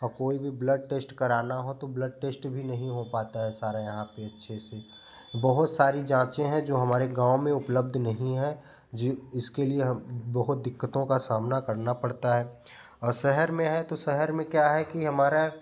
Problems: none marked